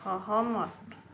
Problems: constant background noise